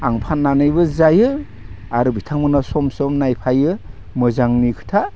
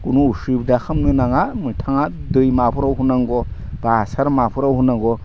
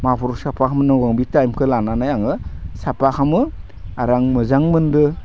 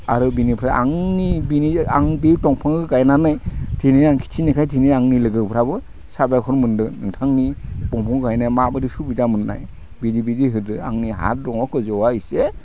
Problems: none marked